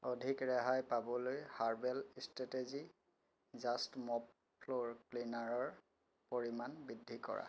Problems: constant background noise, low volume